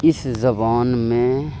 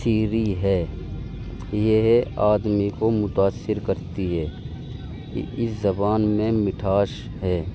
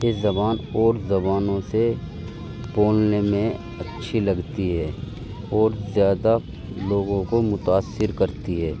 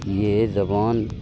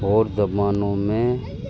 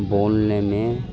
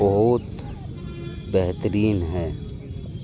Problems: constant background noise